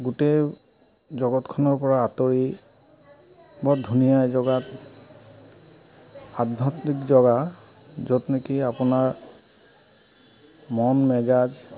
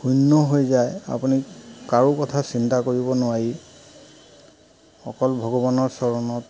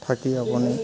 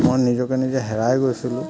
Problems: constant background noise